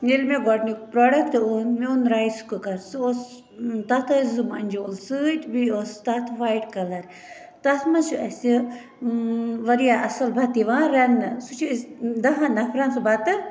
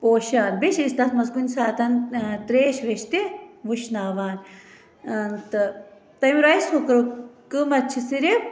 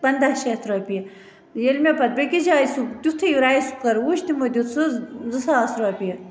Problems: constant background noise, continuous background conversations